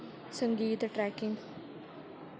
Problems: low volume